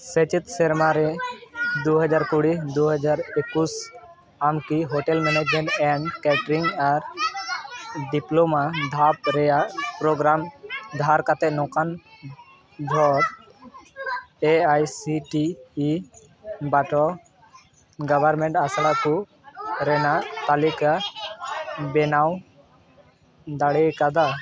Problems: constant background noise, continuous background conversations